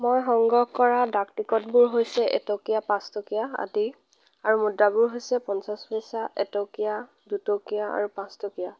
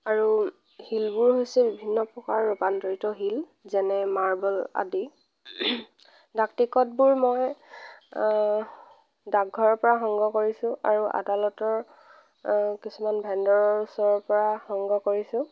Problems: none marked